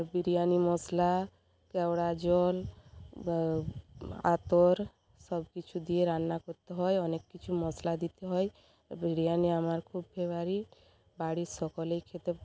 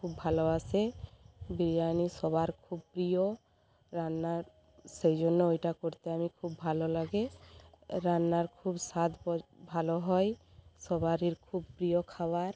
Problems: constant background noise